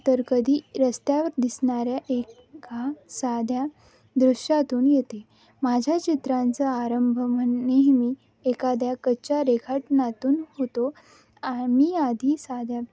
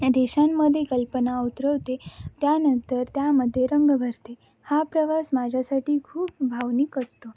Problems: none marked